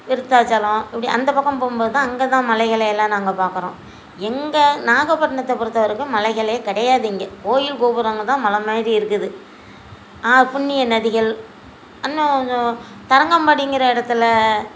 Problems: constant background noise